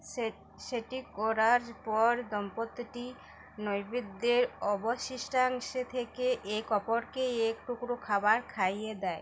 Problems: none marked